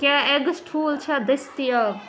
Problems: constant background noise, background conversations at intervals